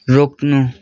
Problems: background conversations at intervals